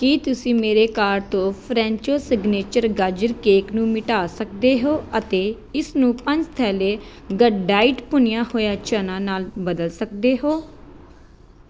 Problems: background sounds at intervals